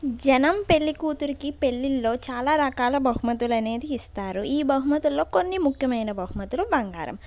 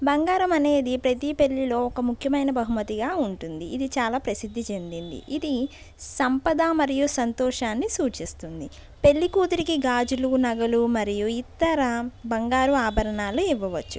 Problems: background sounds at intervals